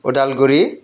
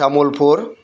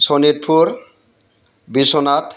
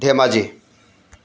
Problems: constant background noise